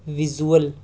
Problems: constant background noise